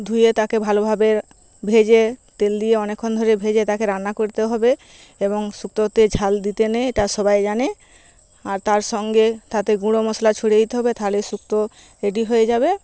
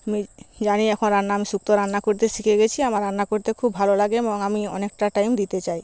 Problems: none marked